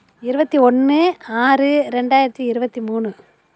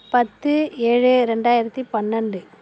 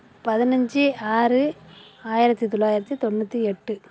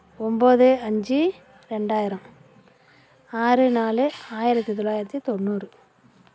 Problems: none marked